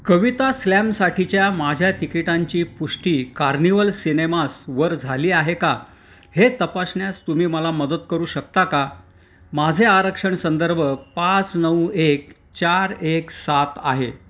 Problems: constant background noise